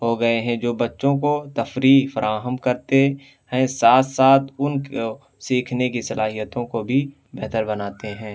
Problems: none marked